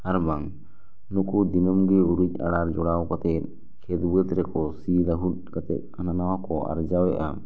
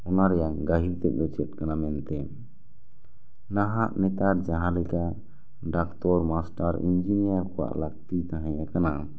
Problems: none marked